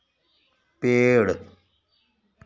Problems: background sounds at intervals